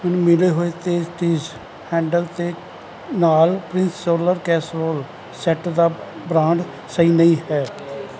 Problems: none marked